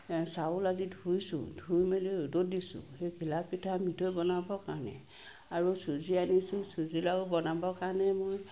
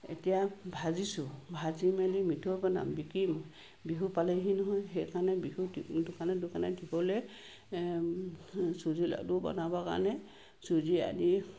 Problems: constant background noise